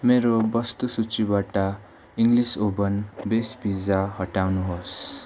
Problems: background sounds at intervals